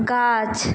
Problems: constant background noise